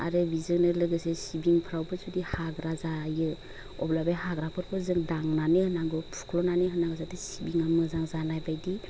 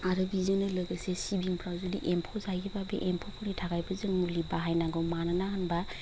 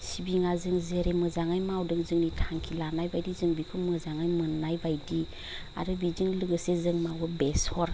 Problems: none marked